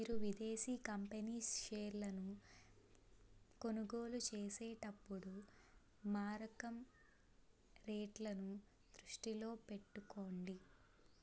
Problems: low volume